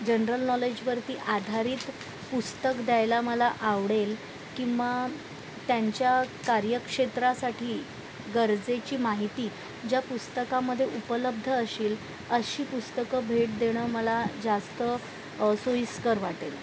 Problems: constant background noise